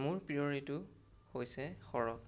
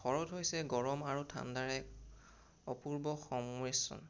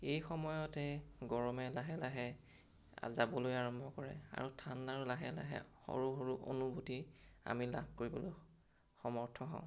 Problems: none marked